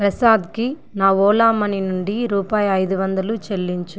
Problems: none marked